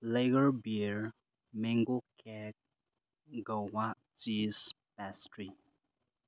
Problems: background sounds at intervals